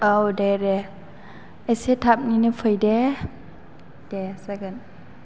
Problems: low volume